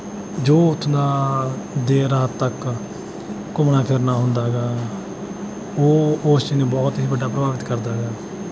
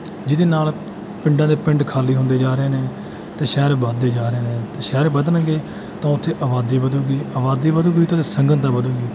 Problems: none marked